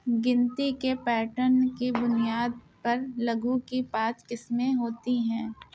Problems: none marked